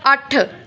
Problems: background conversations at intervals